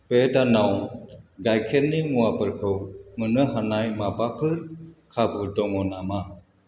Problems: constant background noise